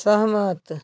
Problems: background sounds at intervals